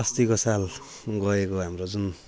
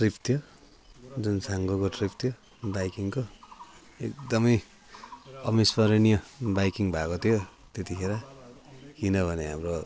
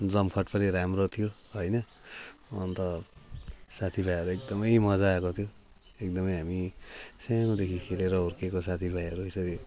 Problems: none marked